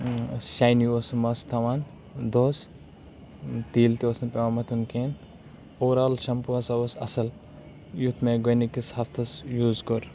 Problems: background sounds at intervals